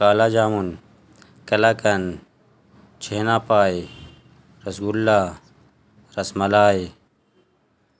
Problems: constant background noise